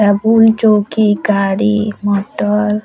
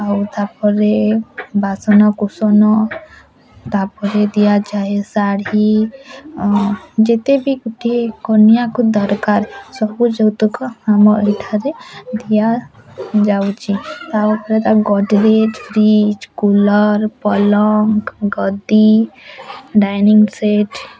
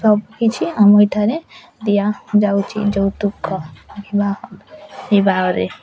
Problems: none marked